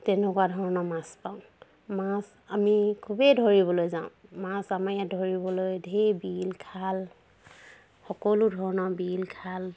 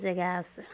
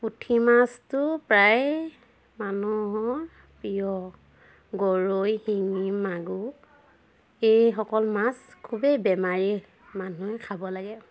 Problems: none marked